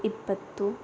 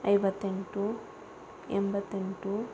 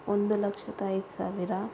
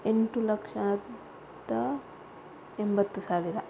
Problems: constant background noise